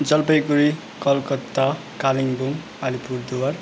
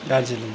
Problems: none marked